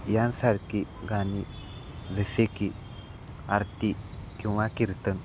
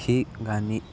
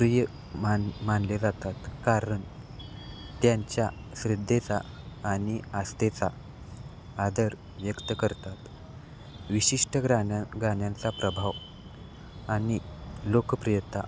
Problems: constant background noise, background conversations at intervals